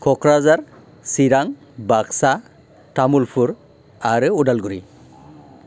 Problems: none marked